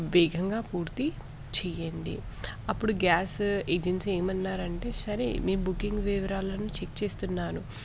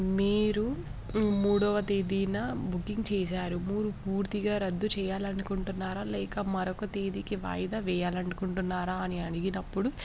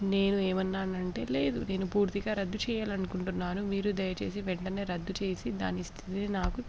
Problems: background sounds at intervals